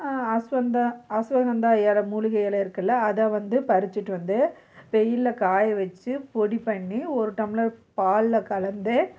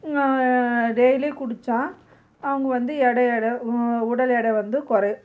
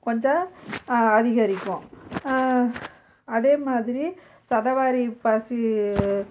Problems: none marked